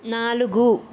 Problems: constant background noise